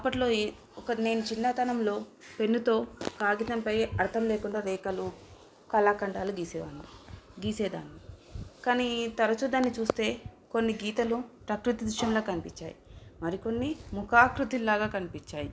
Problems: none marked